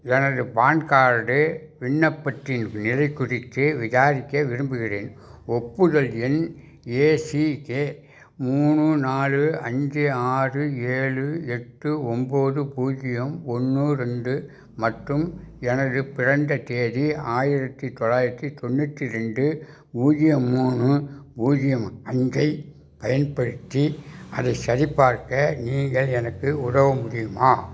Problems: none marked